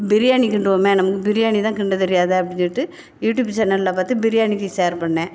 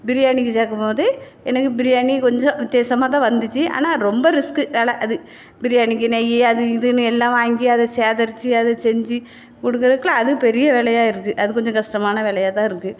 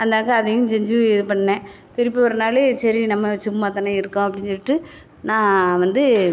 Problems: none marked